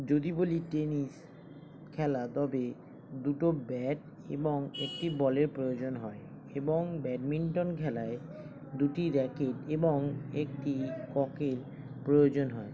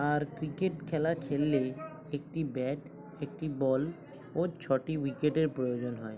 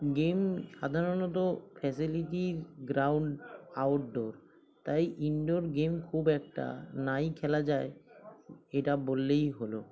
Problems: constant background noise, continuous background conversations